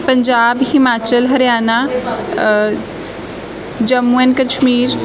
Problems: constant background noise, background conversations at intervals